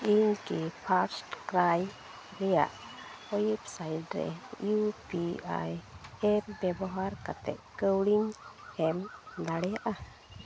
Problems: none marked